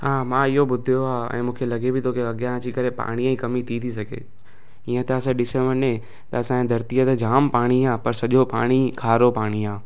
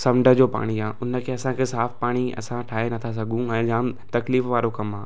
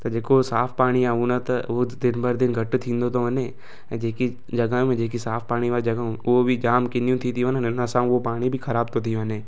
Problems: constant background noise